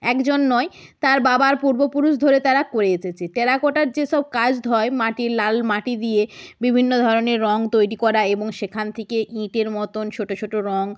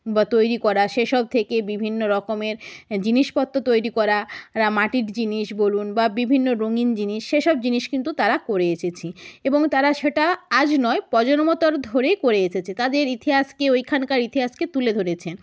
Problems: none marked